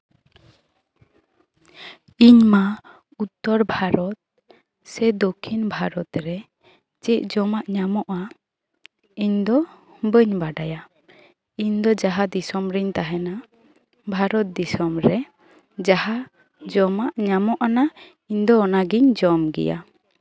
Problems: background sounds at intervals, background conversations at intervals